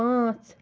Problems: constant background noise